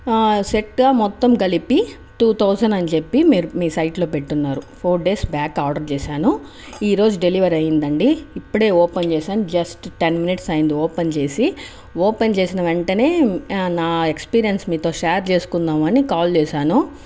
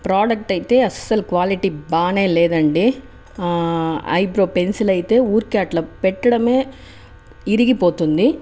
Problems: none marked